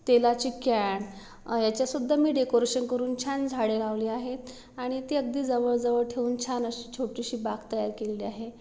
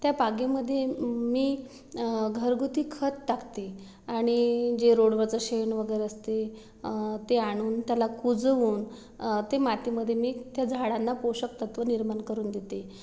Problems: none marked